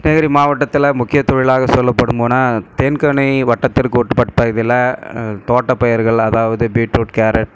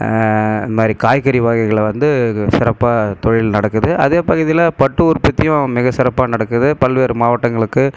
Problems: none marked